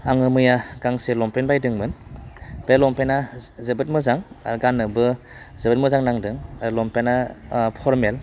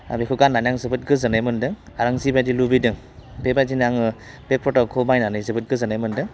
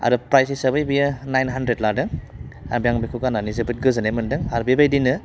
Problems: constant background noise